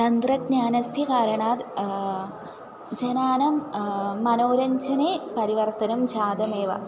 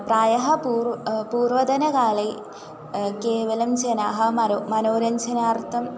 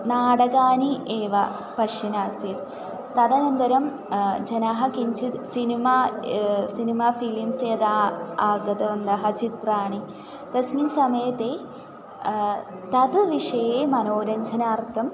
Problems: constant background noise, continuous background conversations